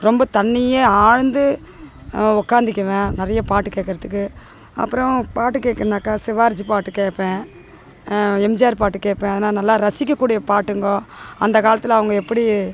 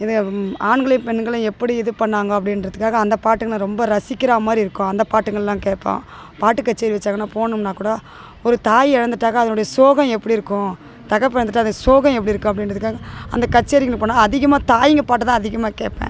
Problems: constant background noise, background conversations at intervals